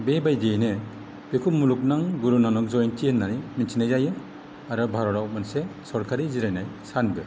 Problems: none marked